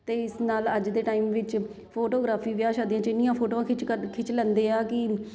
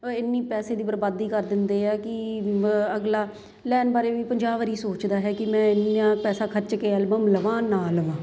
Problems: none marked